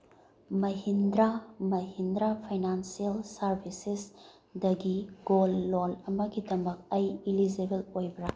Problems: low volume